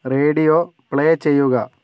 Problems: none marked